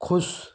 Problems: none marked